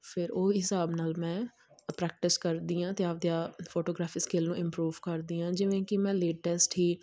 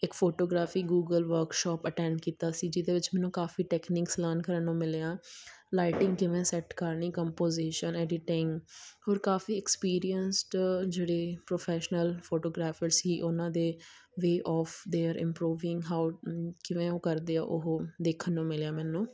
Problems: none marked